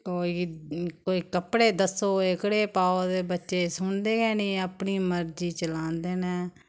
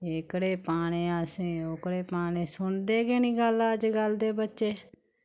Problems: none marked